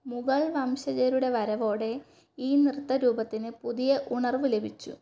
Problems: none marked